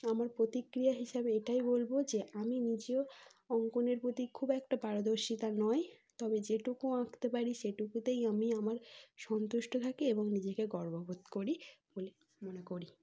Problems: background sounds at intervals